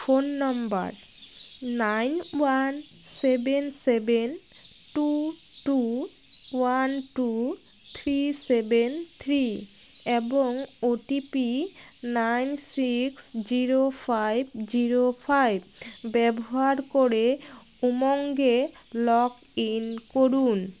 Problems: constant background noise